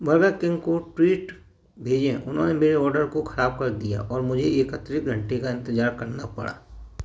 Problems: background sounds at intervals